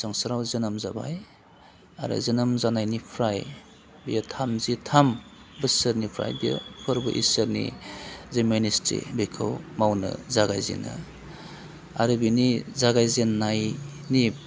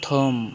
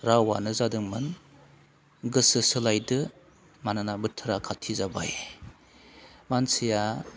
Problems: constant background noise